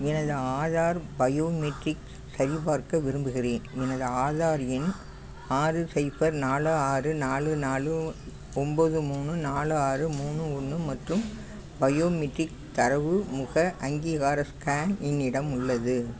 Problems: constant background noise